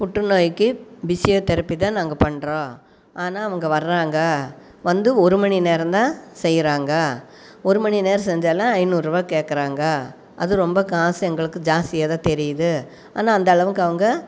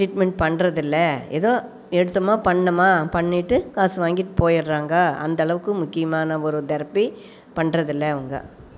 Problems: background sounds at intervals